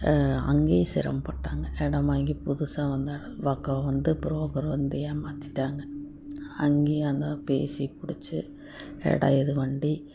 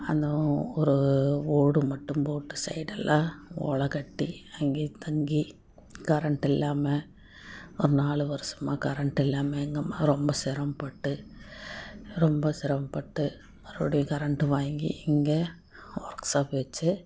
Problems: constant background noise